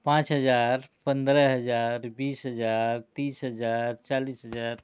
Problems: background sounds at intervals